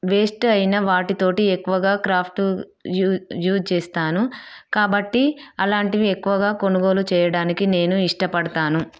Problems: none marked